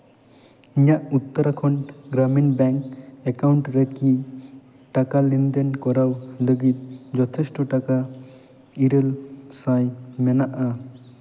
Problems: echo